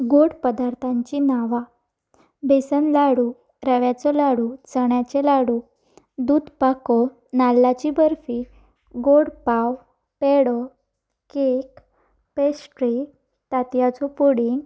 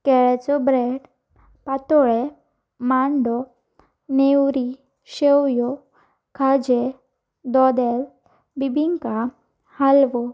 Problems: background sounds at intervals